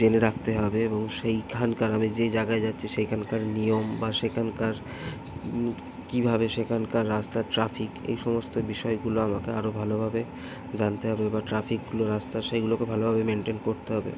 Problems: constant background noise, background conversations at intervals